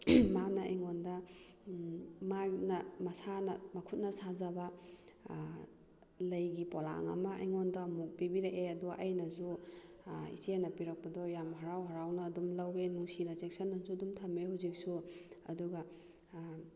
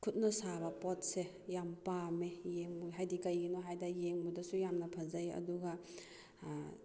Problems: none marked